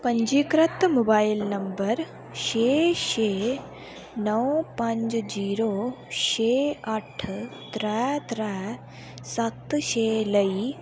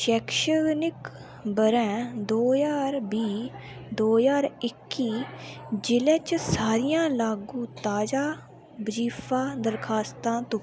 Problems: constant background noise